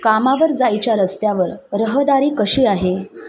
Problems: constant background noise, background conversations at intervals